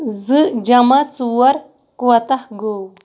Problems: none marked